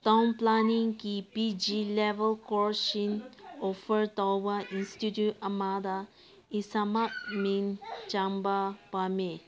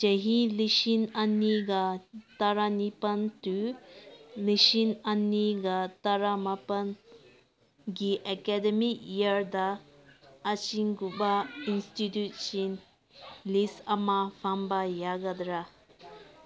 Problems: background conversations at intervals